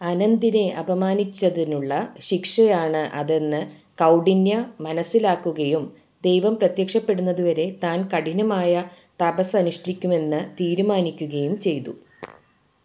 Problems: background sounds at intervals